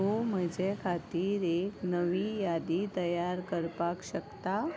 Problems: constant background noise